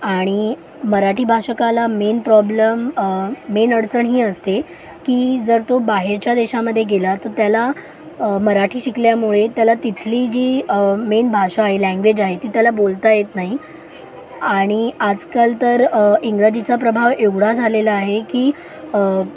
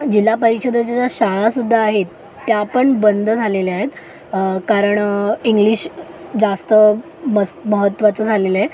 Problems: constant background noise, background conversations at intervals